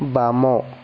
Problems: constant background noise